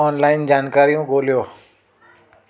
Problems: constant background noise, echo